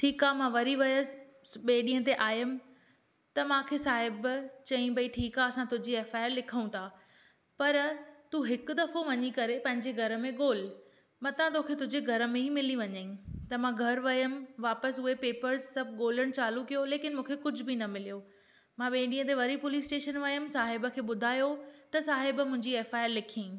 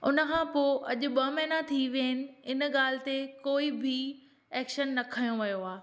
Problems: none marked